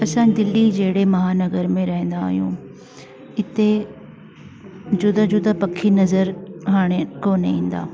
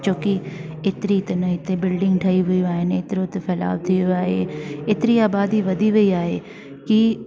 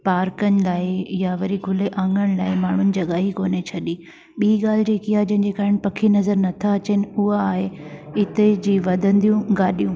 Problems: constant background noise